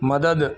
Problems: constant background noise, low volume